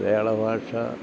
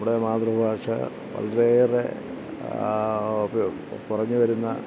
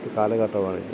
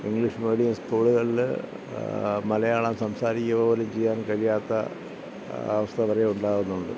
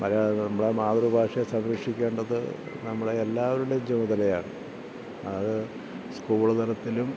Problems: low volume